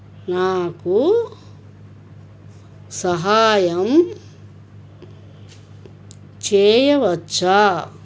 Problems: background conversations at intervals